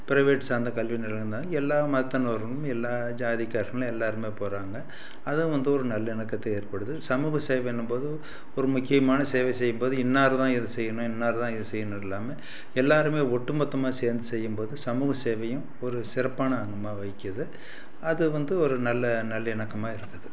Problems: none marked